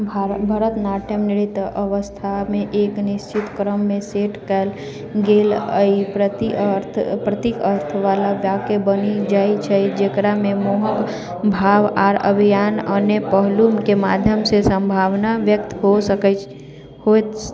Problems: continuous background conversations